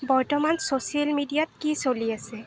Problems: none marked